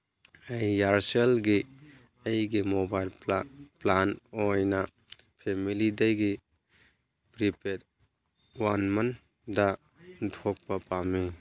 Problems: none marked